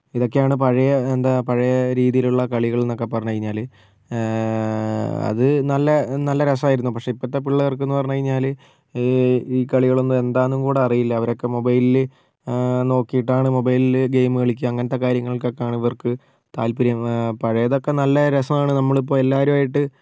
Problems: none marked